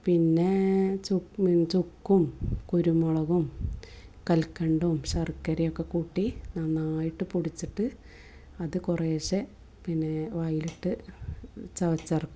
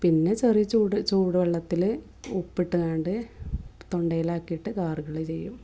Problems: none marked